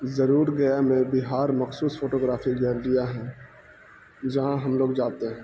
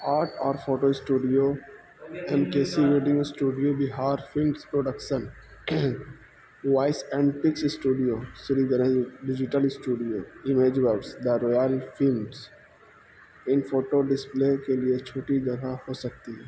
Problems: constant background noise